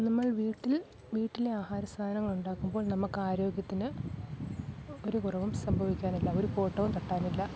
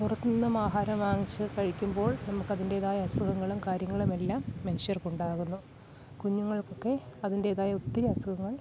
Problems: background sounds at intervals, low volume